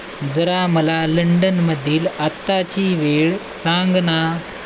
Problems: constant background noise